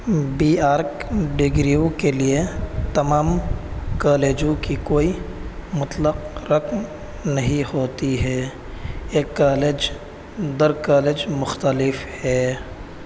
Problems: constant background noise